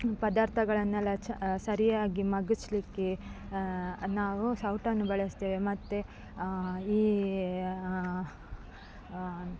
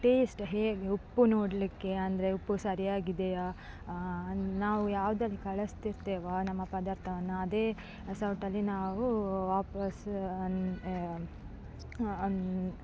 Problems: background sounds at intervals